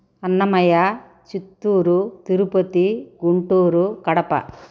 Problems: constant background noise